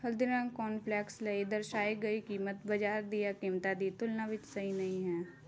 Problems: constant background noise